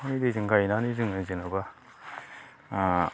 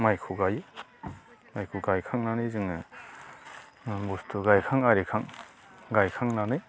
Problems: constant background noise